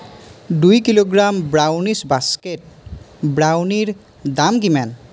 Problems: constant background noise